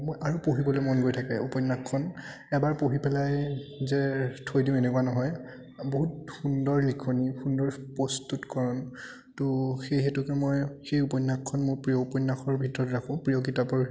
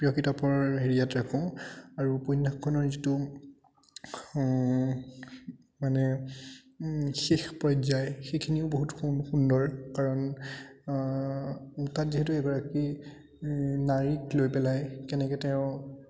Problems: continuous background conversations